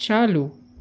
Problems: constant background noise